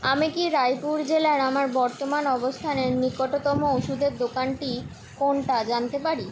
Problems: background sounds at intervals